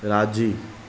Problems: constant background noise